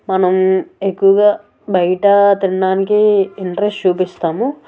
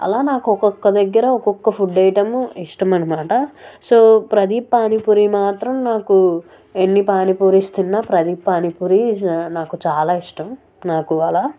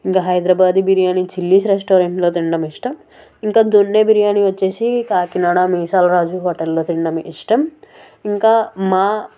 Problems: none marked